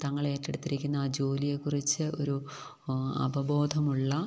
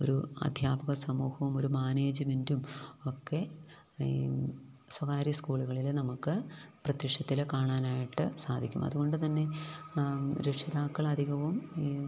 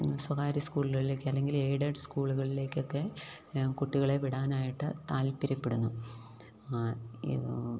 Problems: none marked